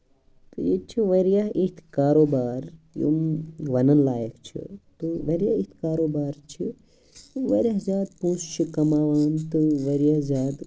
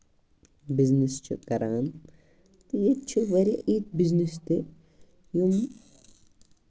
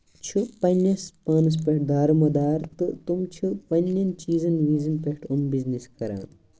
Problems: background sounds at intervals